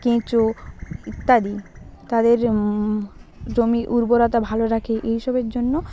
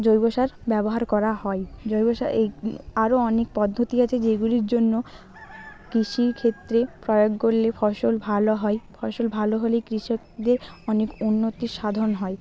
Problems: constant background noise